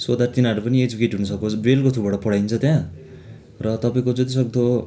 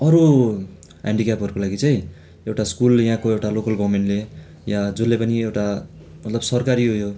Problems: none marked